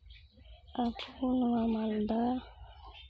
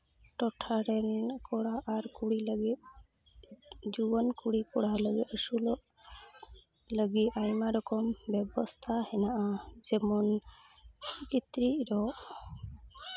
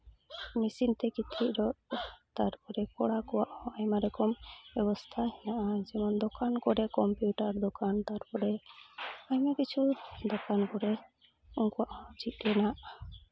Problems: constant background noise, low volume